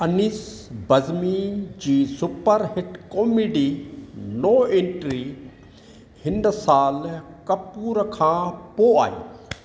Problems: none marked